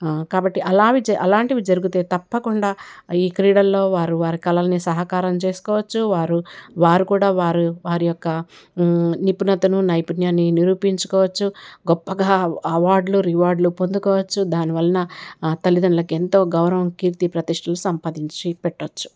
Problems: none marked